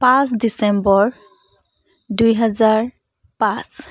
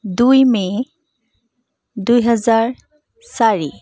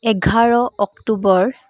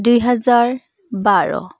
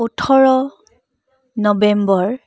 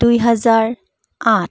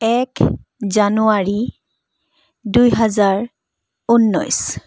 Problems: background conversations at intervals